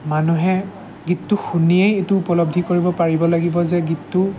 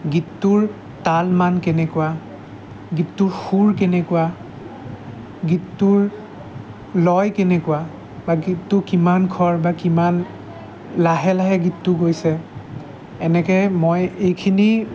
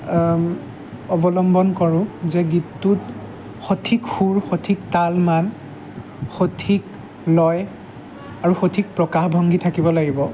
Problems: constant background noise, background conversations at intervals